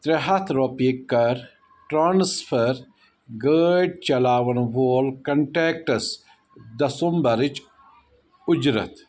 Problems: none marked